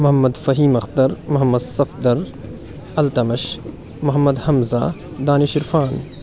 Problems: none marked